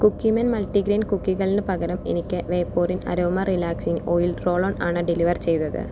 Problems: none marked